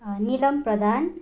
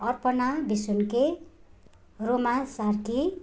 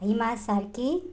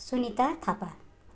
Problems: none marked